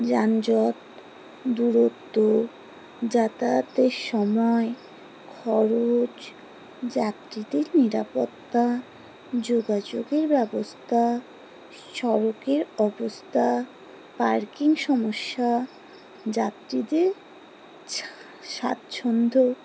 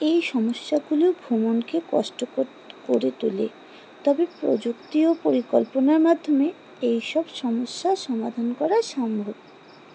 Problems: constant background noise